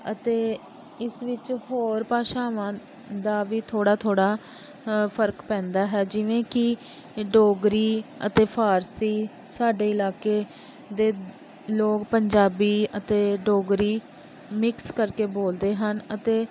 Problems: constant background noise